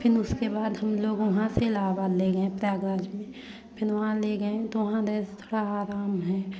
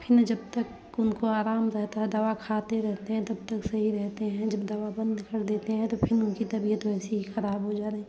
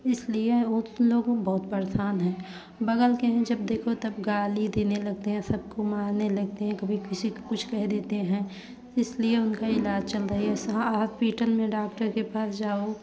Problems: background sounds at intervals, background conversations at intervals